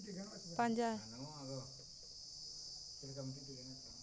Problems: constant background noise